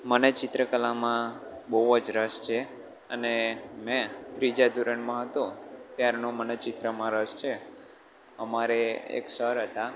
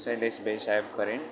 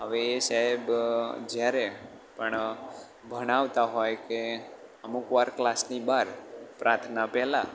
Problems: constant background noise